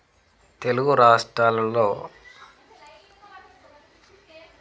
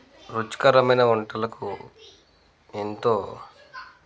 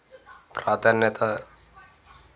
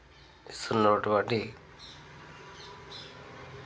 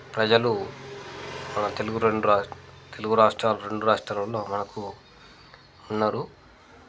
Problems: constant background noise, background conversations at intervals